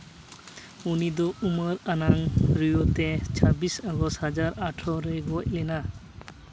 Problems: background sounds at intervals